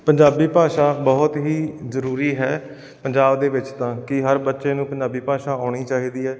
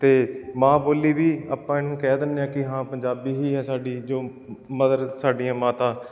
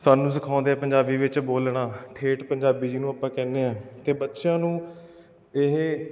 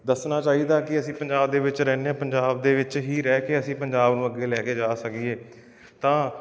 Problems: none marked